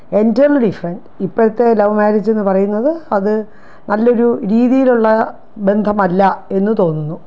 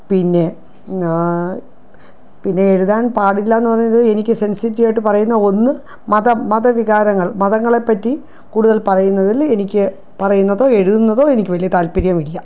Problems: none marked